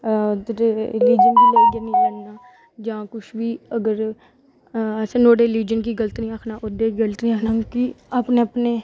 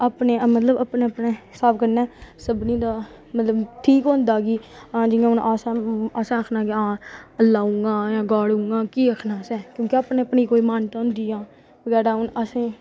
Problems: none marked